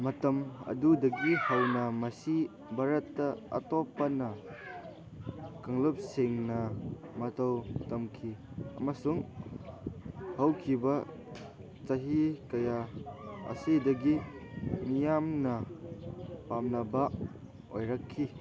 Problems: background sounds at intervals